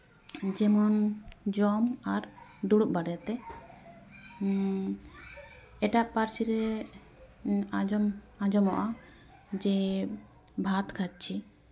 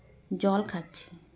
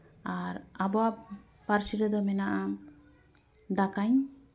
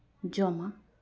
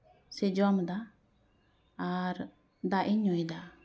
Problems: continuous background conversations